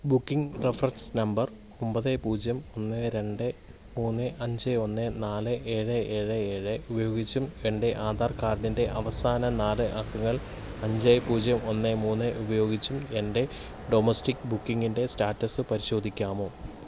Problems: background sounds at intervals